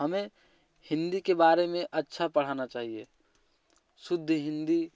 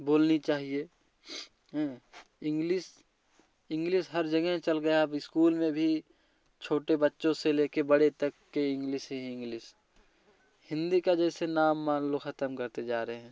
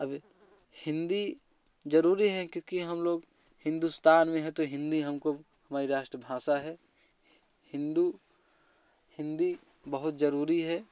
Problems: none marked